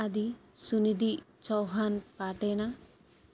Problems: none marked